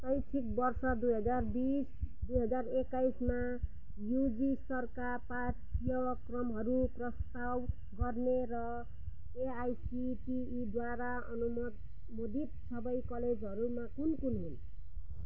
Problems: low volume